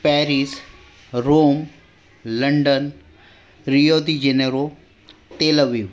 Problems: background conversations at intervals